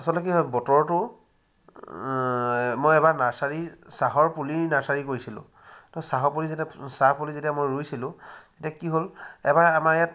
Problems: constant background noise